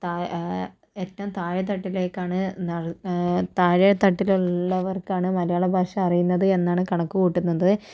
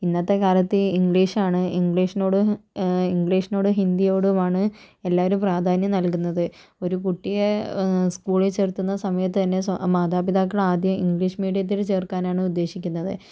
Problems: none marked